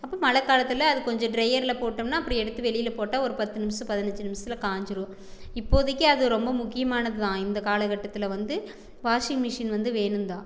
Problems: background conversations at intervals